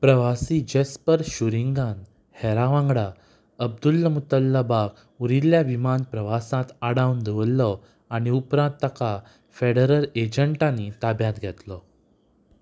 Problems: background sounds at intervals